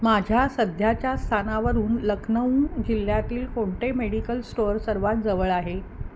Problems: constant background noise